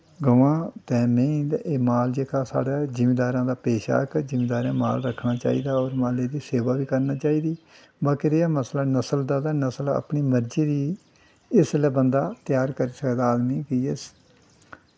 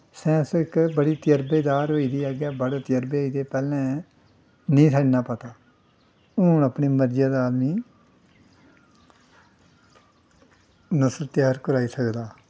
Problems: constant background noise